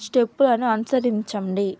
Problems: background sounds at intervals